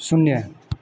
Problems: none marked